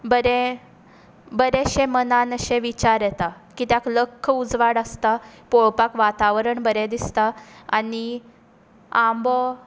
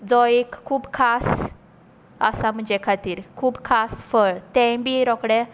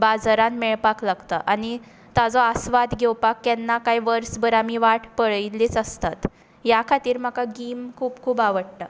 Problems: background sounds at intervals